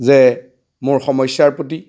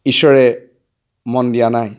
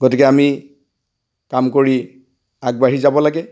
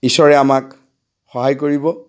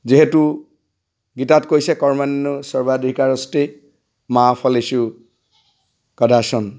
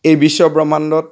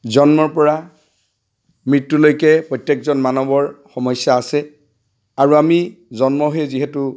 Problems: none marked